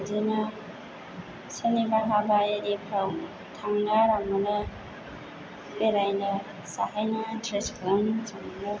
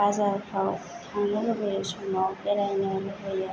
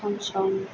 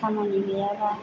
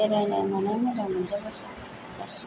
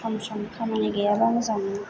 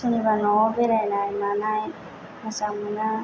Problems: low volume